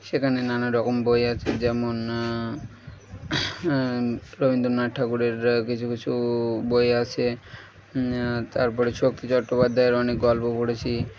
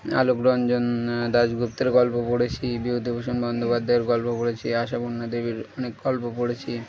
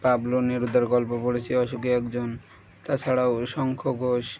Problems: none marked